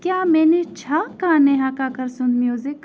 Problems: none marked